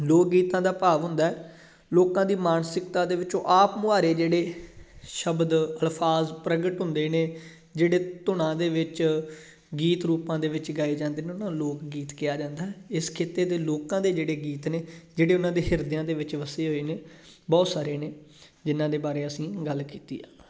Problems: background sounds at intervals